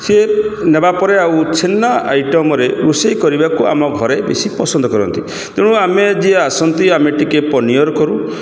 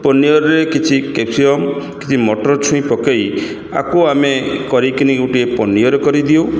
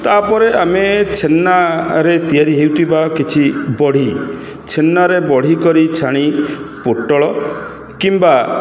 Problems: echo